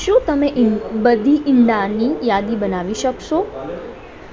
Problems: constant background noise, continuous background conversations